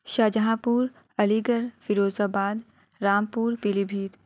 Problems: none marked